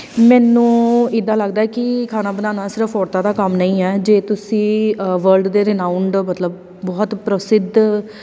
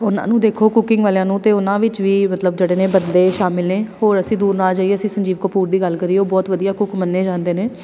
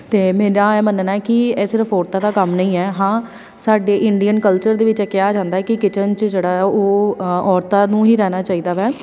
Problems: none marked